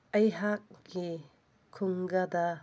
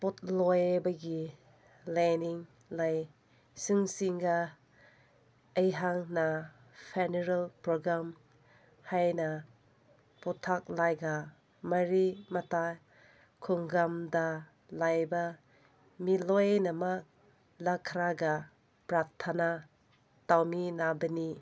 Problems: none marked